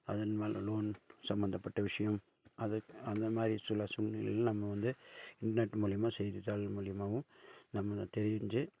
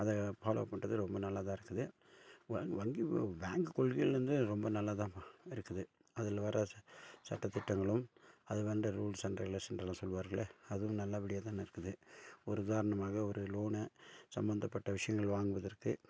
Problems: none marked